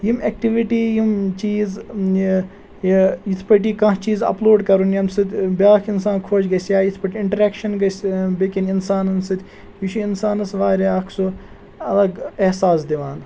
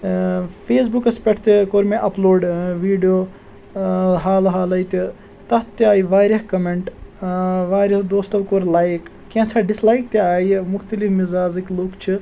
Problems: none marked